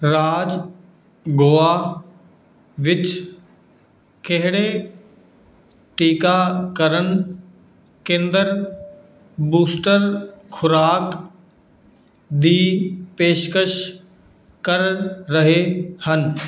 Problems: background sounds at intervals